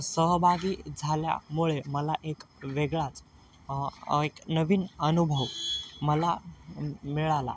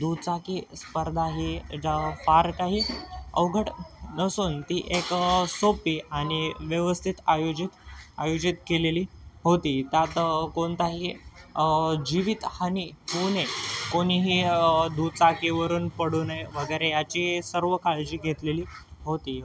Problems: constant background noise, background conversations at intervals